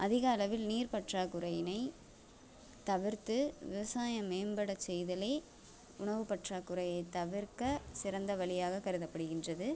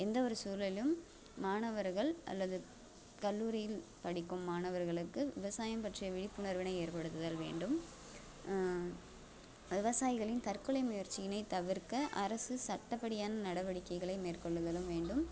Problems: constant background noise